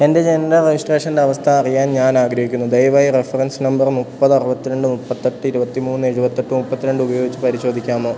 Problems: constant background noise